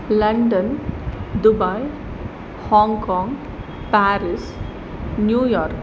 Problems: constant background noise